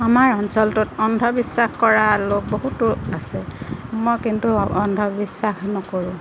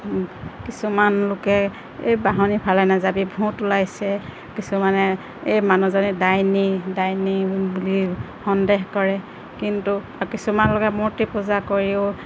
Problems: constant background noise